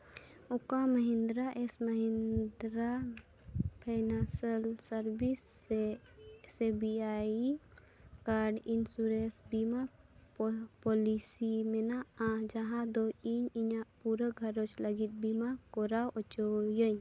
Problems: constant background noise, low volume